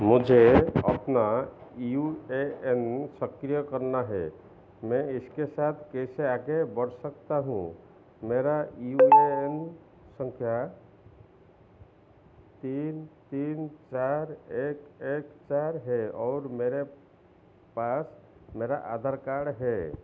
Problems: constant background noise, echo